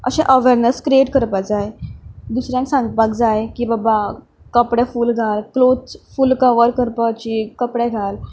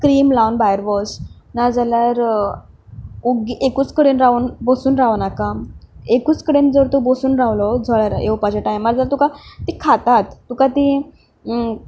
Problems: none marked